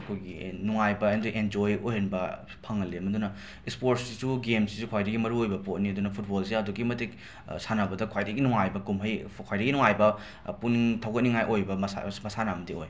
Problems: background sounds at intervals